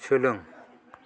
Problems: none marked